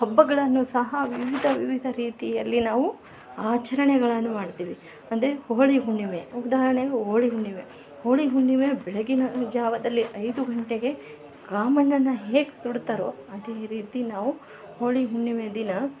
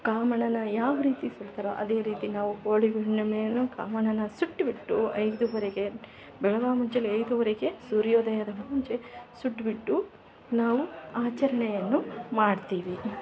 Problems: none marked